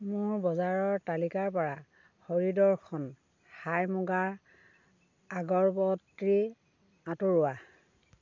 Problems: constant background noise